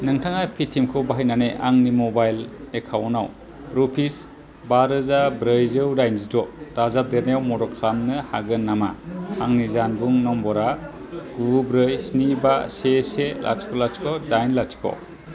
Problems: constant background noise